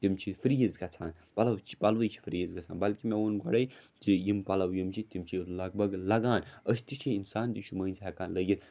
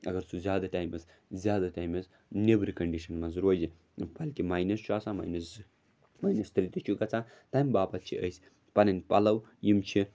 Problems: none marked